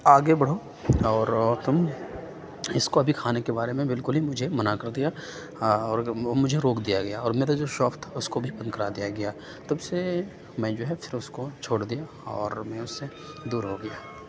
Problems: none marked